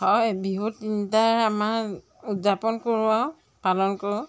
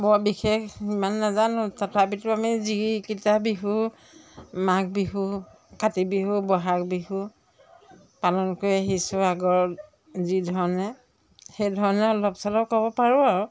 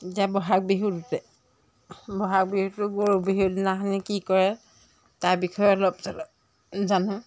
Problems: background sounds at intervals